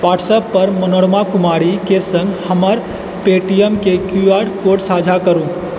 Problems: constant background noise